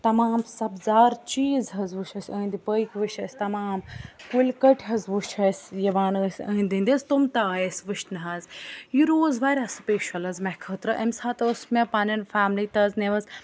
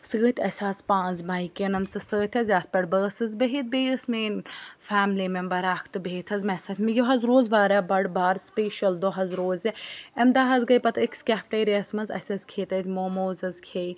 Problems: background sounds at intervals